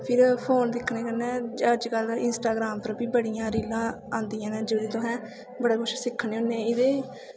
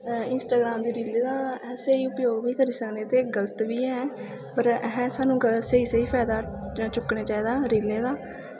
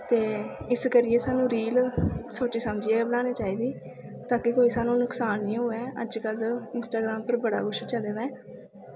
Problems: constant background noise, echo